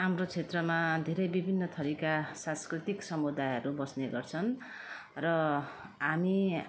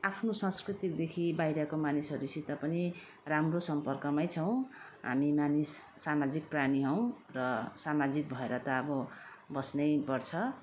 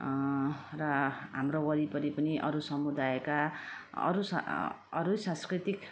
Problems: none marked